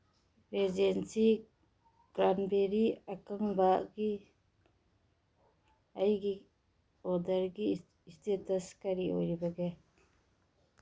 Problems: none marked